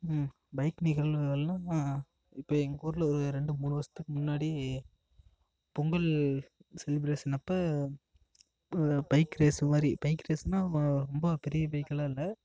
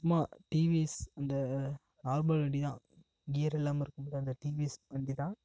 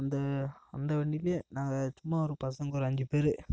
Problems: none marked